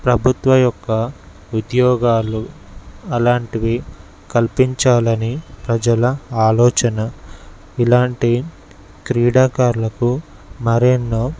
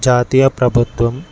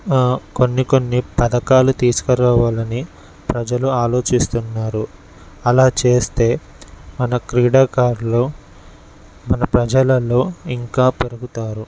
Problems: none marked